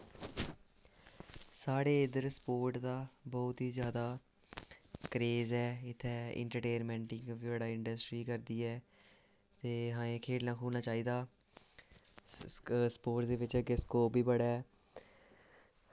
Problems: low volume